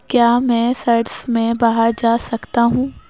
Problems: background sounds at intervals